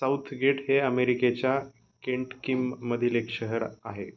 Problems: none marked